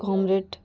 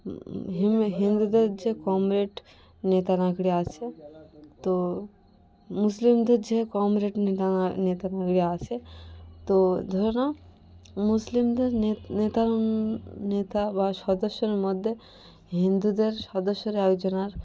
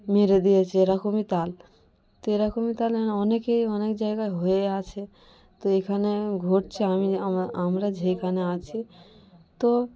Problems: constant background noise, continuous background conversations